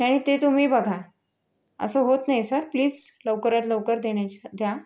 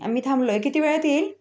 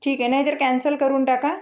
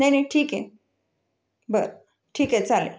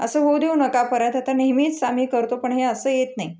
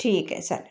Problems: none marked